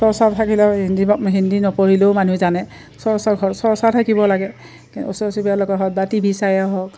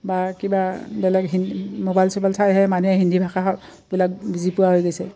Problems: none marked